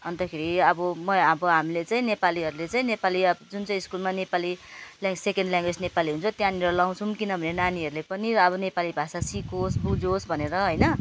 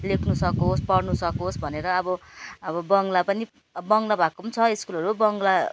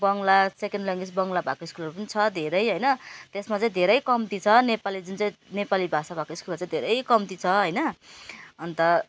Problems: none marked